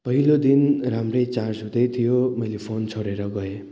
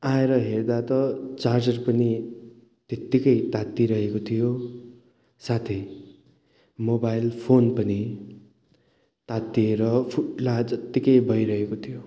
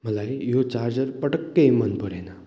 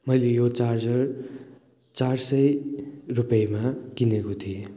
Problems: none marked